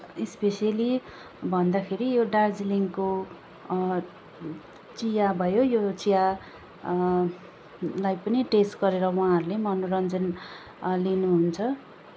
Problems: background sounds at intervals